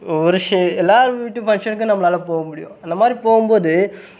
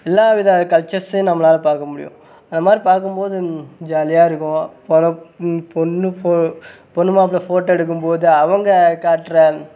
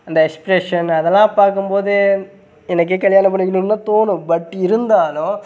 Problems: background sounds at intervals